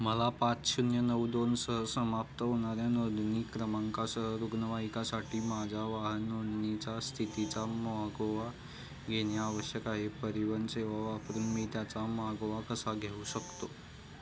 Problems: constant background noise